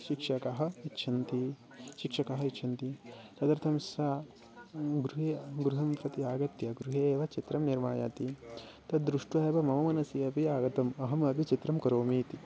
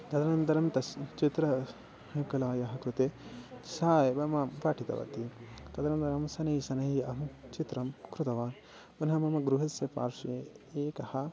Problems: background sounds at intervals, background conversations at intervals, low volume